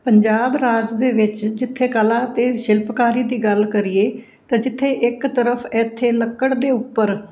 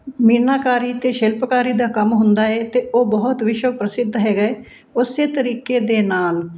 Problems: none marked